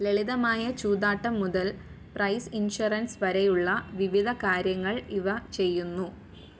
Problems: background sounds at intervals